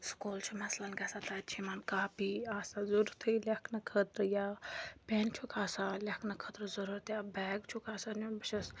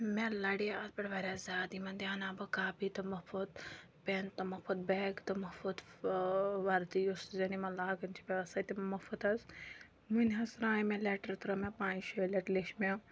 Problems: none marked